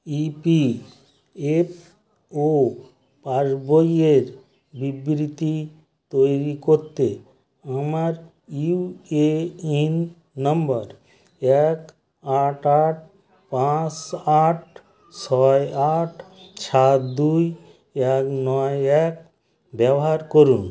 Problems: background sounds at intervals, continuous background conversations